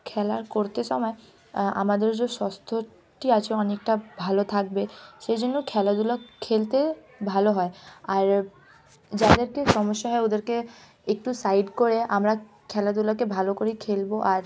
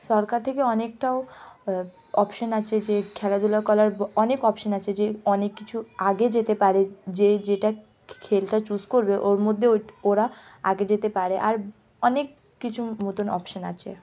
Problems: background sounds at intervals